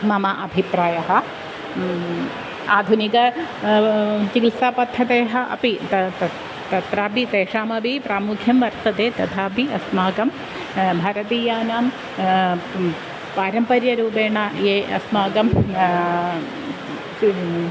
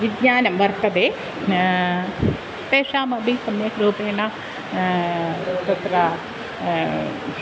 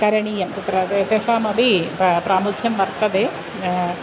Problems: constant background noise